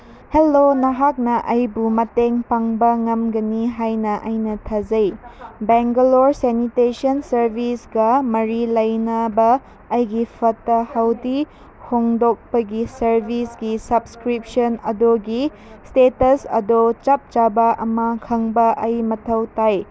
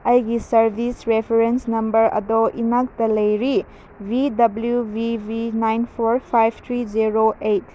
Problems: background sounds at intervals